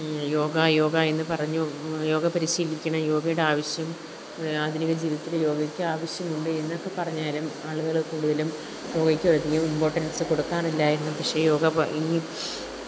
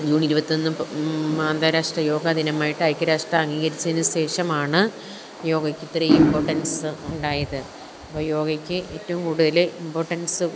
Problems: background sounds at intervals